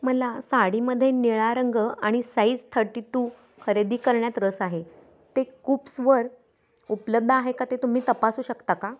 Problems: none marked